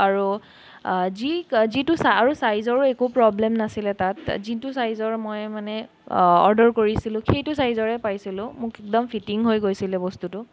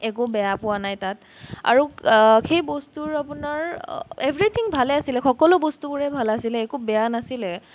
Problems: none marked